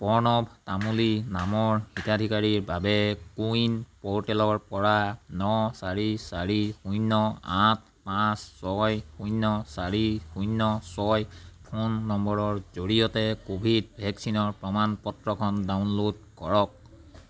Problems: constant background noise, background conversations at intervals